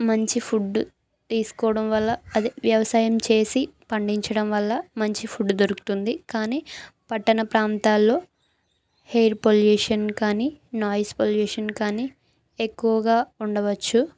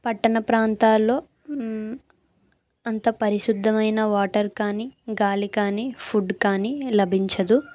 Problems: none marked